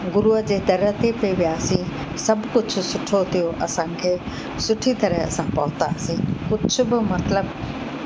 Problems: constant background noise